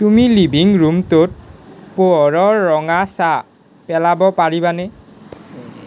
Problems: background sounds at intervals